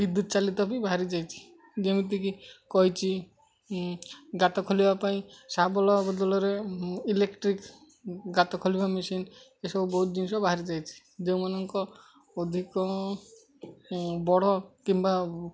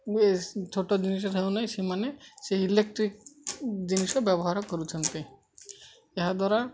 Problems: constant background noise, continuous background conversations